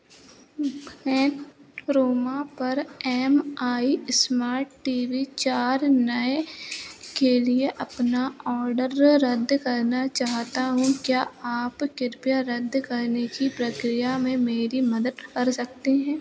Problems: constant background noise